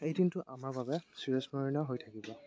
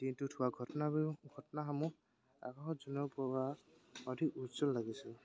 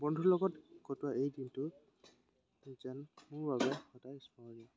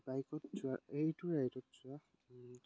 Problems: constant background noise